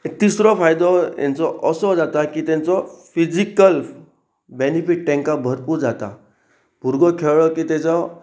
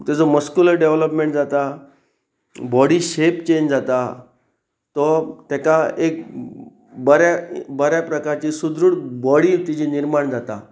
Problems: none marked